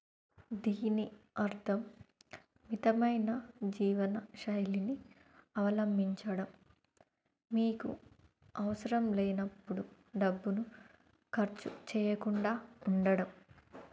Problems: low volume